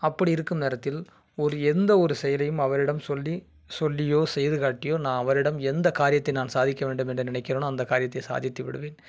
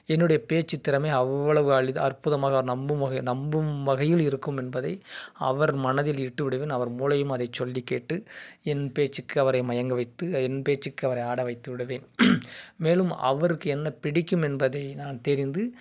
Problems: none marked